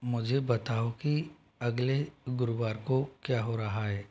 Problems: none marked